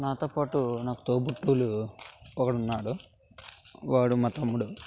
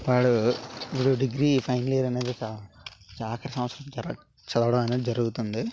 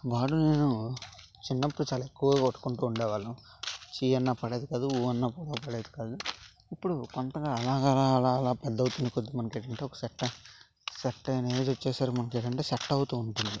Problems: constant background noise